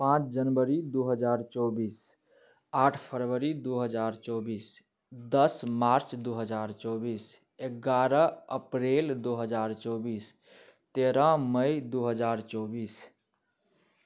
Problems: none marked